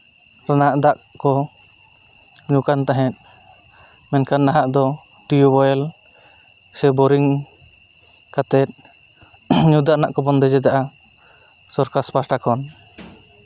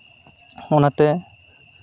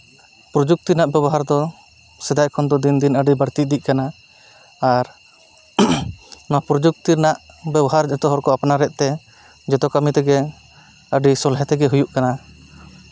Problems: constant background noise